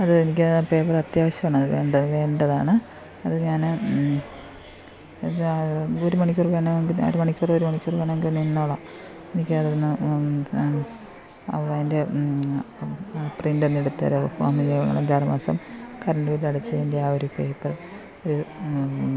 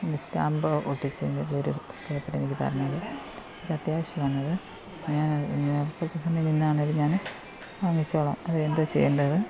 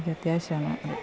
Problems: constant background noise